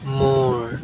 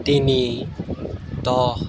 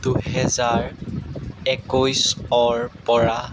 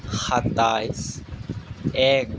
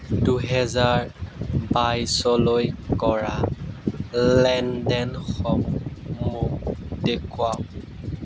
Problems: background sounds at intervals